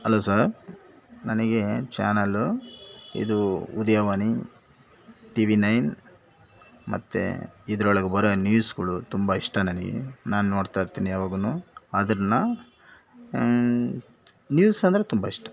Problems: background sounds at intervals